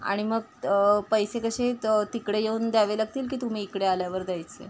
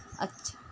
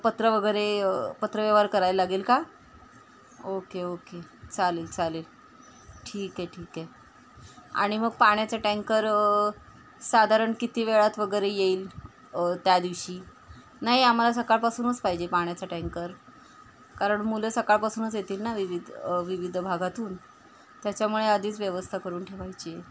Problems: constant background noise, background conversations at intervals